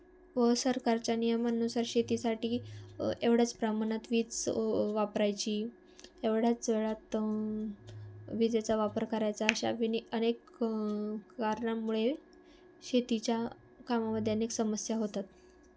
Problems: constant background noise